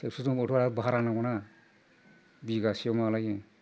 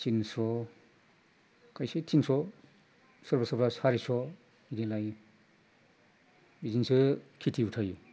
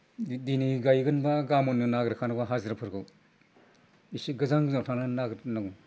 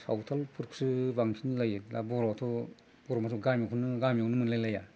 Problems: low volume